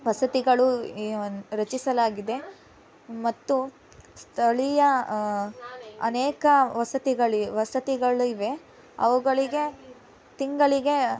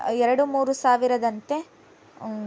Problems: background conversations at intervals